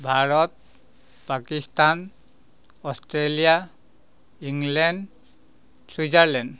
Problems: background sounds at intervals